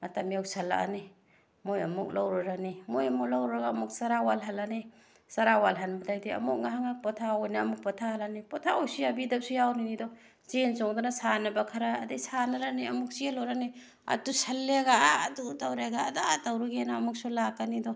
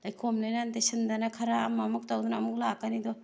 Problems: none marked